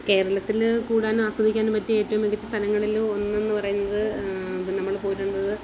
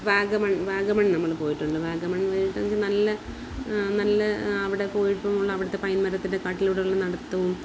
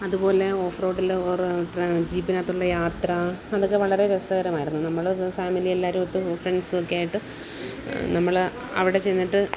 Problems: constant background noise, background conversations at intervals